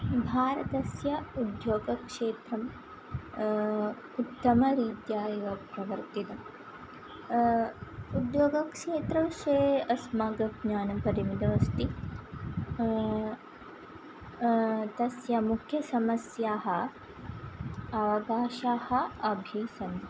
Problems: none marked